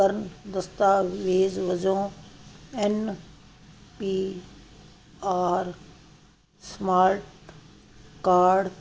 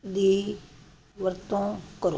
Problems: constant background noise